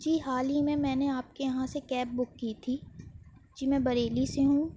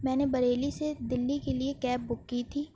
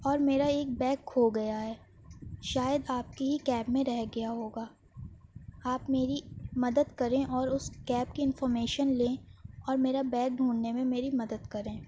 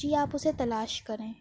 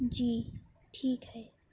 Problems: none marked